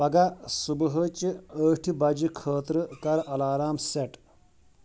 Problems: none marked